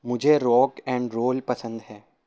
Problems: none marked